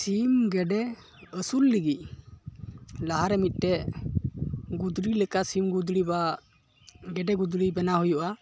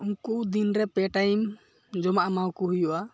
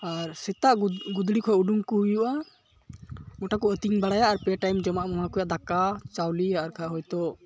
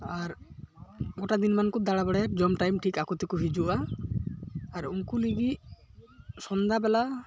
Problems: none marked